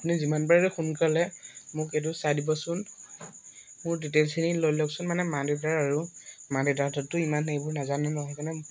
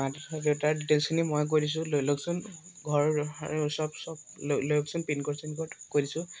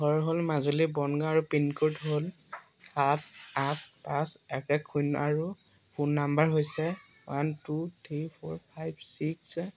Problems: constant background noise, background conversations at intervals